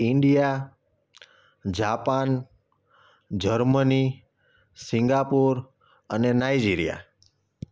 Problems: none marked